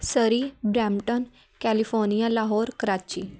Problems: none marked